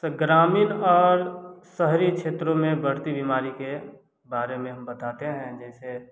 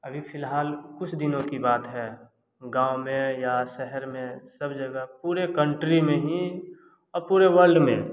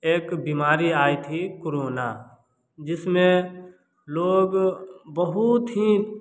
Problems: none marked